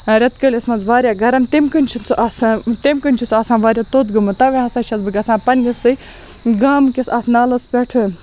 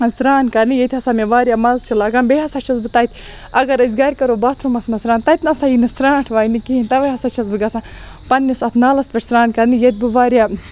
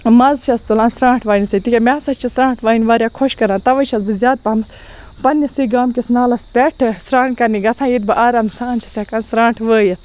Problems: constant background noise